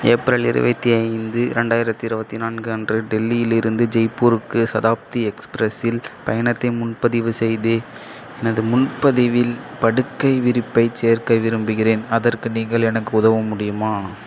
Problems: none marked